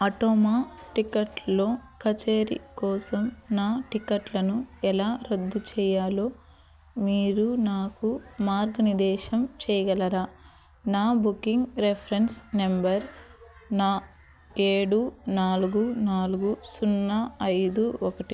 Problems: constant background noise, background conversations at intervals